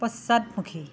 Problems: none marked